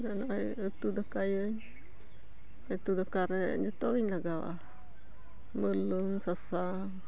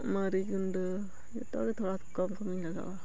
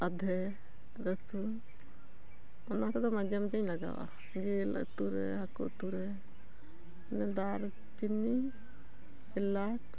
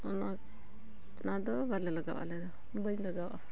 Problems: none marked